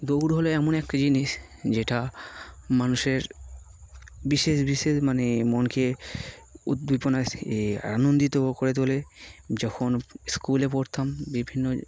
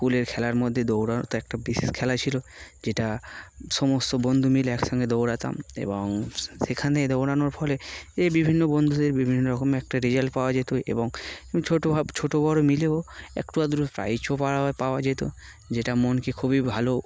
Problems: constant background noise